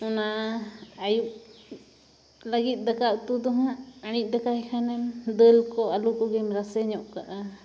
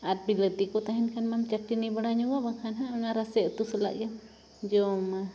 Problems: none marked